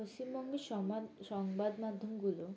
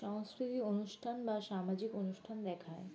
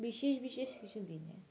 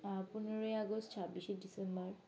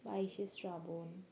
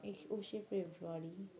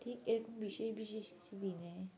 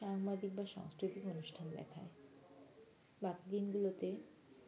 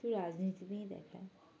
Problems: background sounds at intervals, background conversations at intervals